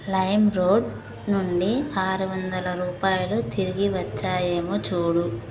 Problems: constant background noise